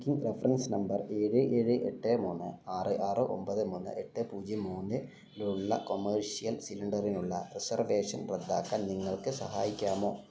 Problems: none marked